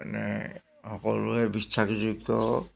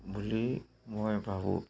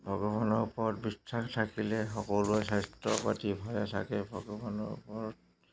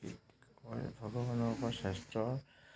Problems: constant background noise